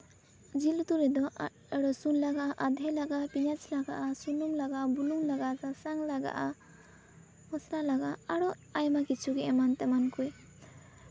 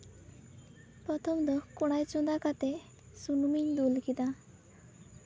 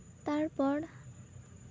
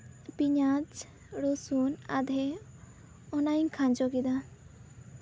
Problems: background sounds at intervals